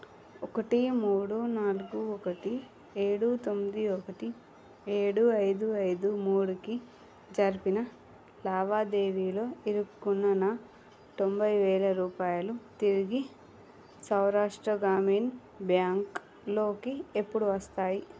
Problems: low volume